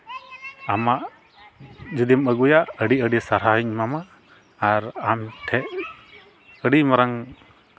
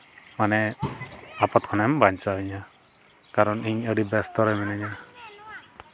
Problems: background conversations at intervals